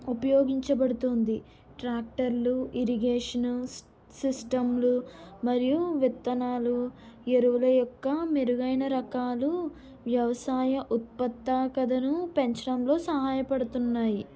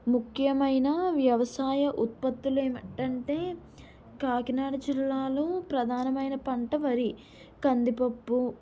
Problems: none marked